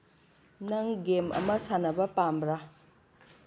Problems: none marked